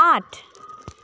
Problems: background sounds at intervals